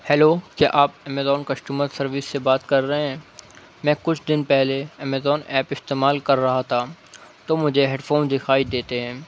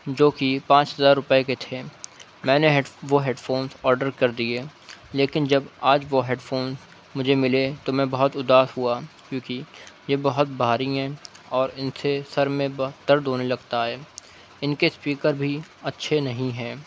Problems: none marked